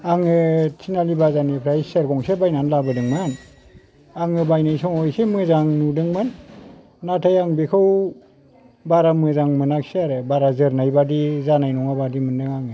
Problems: low volume